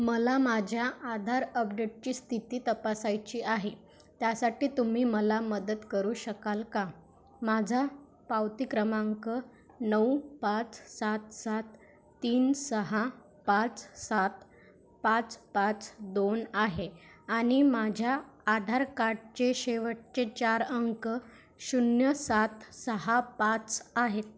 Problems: background sounds at intervals